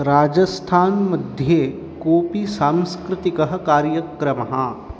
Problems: constant background noise